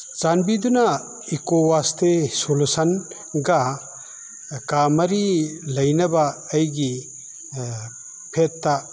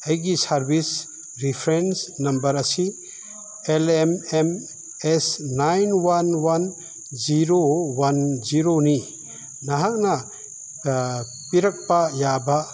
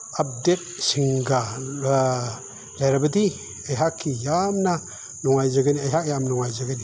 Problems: background sounds at intervals